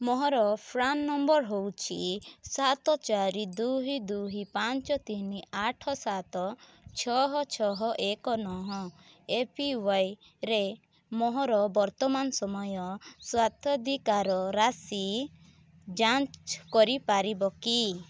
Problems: none marked